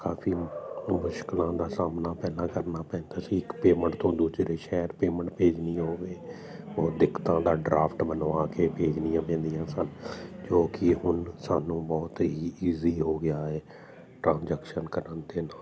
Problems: constant background noise